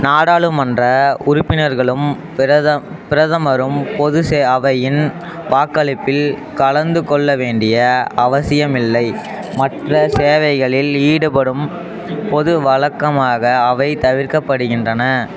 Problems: constant background noise